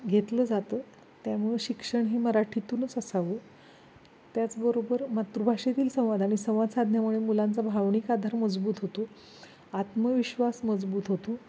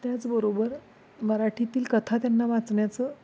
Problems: constant background noise